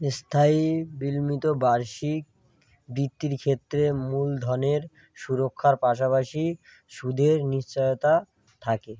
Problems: none marked